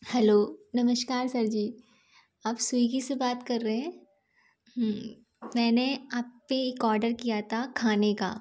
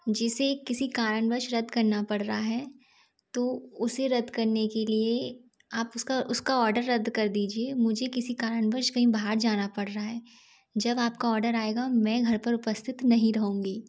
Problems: constant background noise